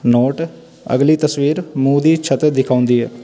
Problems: constant background noise